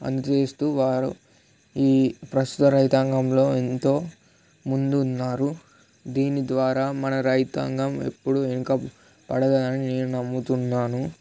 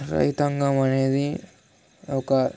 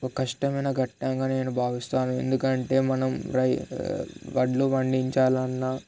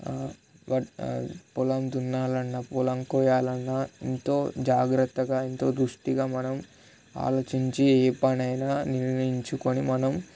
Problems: none marked